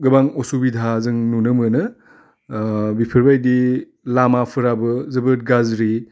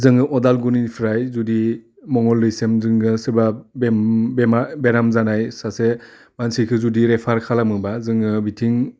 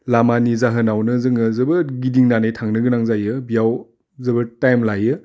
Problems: constant background noise